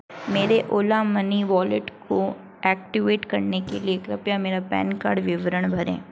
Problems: none marked